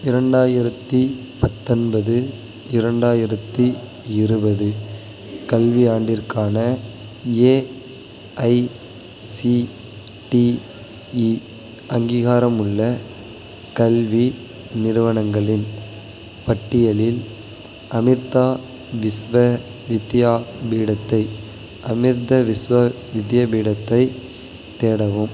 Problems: constant background noise